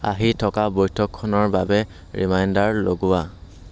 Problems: constant background noise